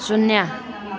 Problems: continuous background conversations